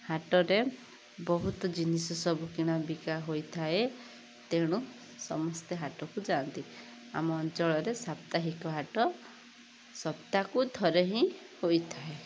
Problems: constant background noise